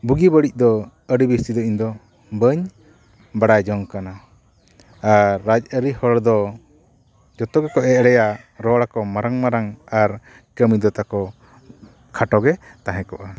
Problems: none marked